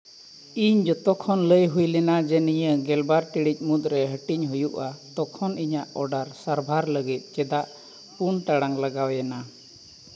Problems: background sounds at intervals